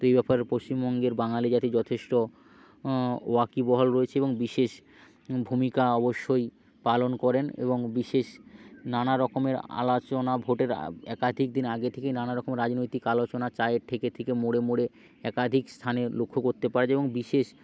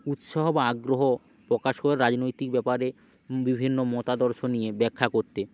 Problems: background sounds at intervals